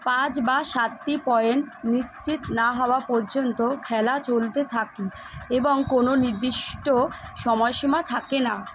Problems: constant background noise